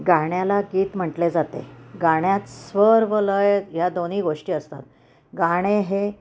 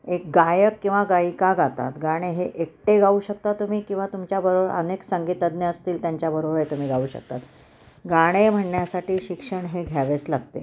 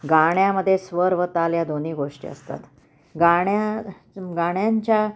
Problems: constant background noise